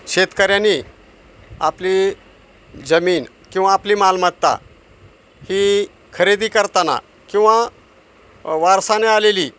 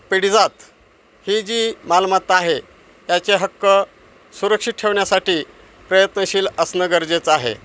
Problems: none marked